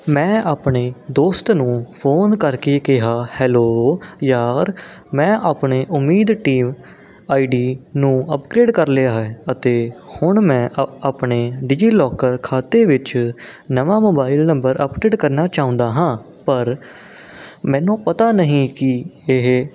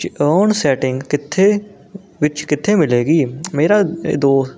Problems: none marked